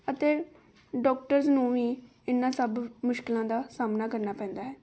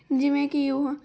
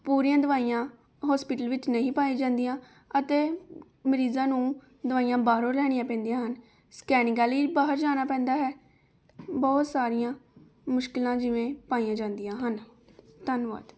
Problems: none marked